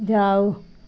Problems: none marked